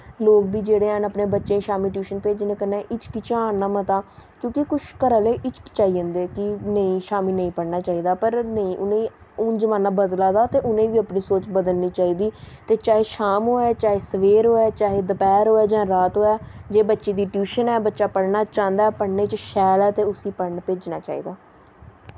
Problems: constant background noise